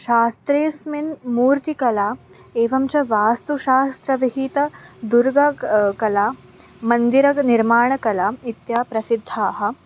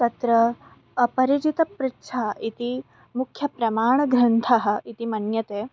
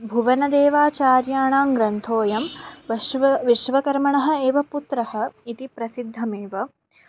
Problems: none marked